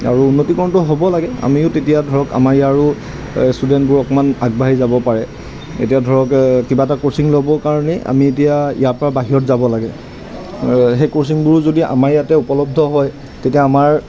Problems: constant background noise